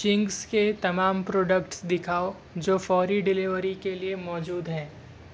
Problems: none marked